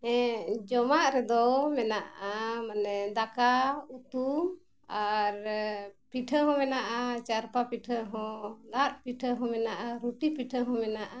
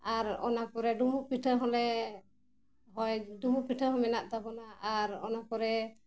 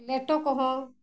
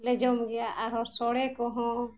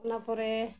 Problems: background sounds at intervals